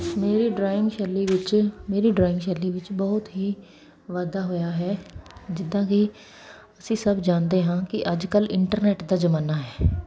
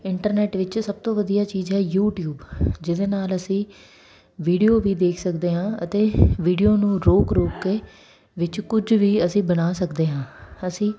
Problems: none marked